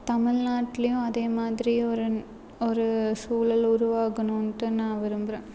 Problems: background sounds at intervals